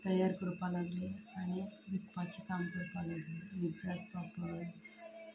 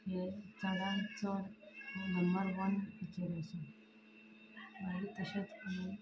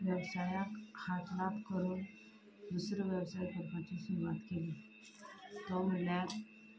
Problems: none marked